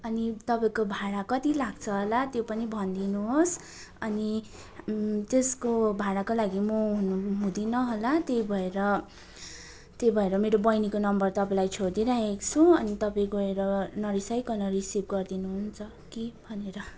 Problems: continuous background conversations